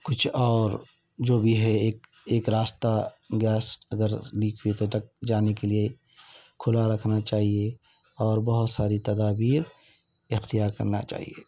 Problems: none marked